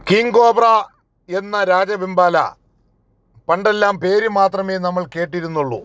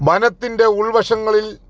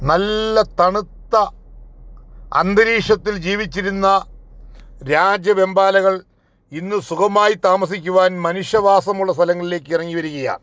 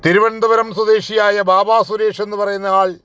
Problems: none marked